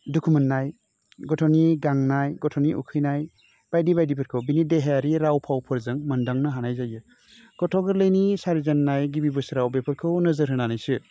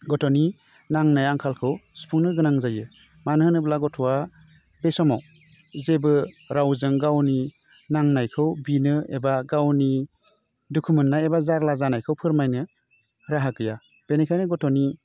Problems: constant background noise